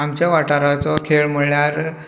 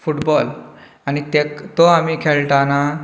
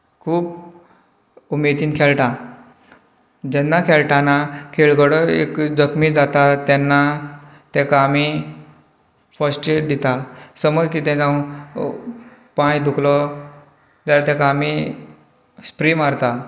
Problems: background conversations at intervals